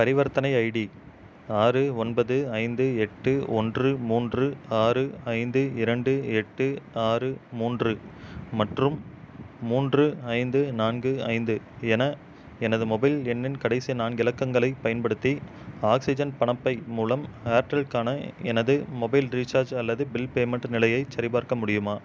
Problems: constant background noise